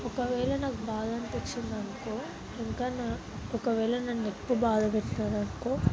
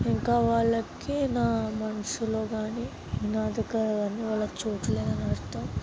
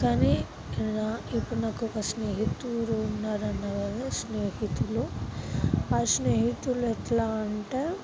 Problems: constant background noise, background conversations at intervals, low volume